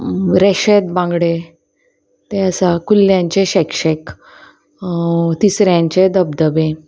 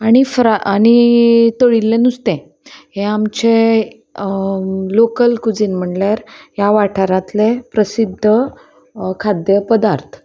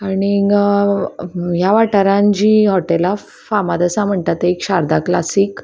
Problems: constant background noise